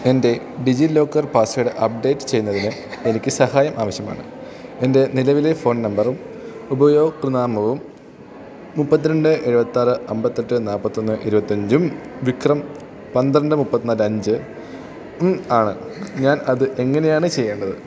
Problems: background conversations at intervals, low volume